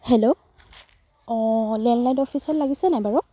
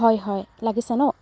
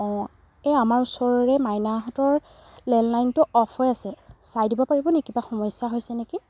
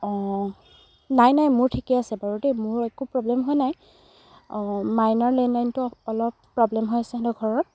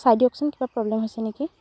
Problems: background sounds at intervals